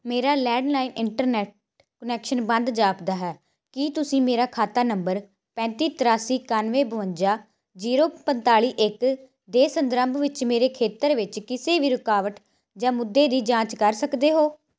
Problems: none marked